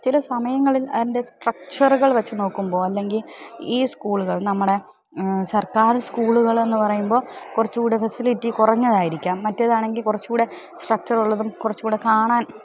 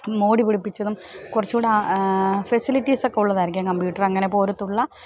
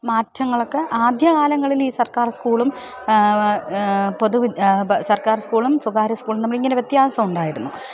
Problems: background sounds at intervals, background conversations at intervals